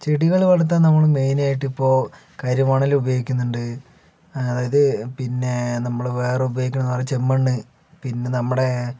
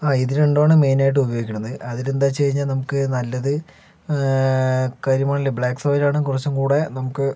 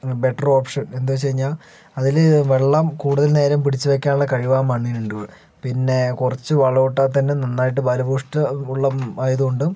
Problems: background conversations at intervals